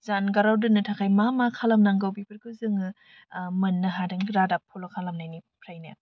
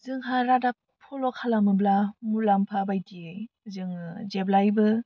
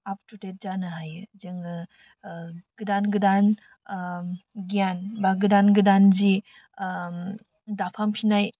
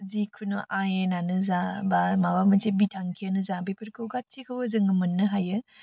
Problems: constant background noise